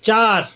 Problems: constant background noise